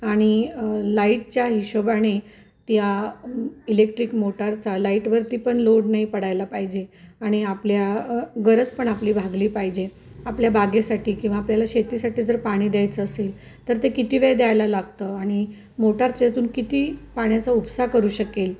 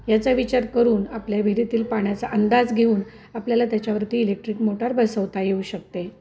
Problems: none marked